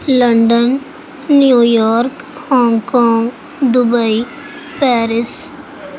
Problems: constant background noise